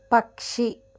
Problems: none marked